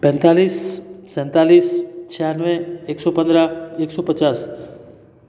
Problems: constant background noise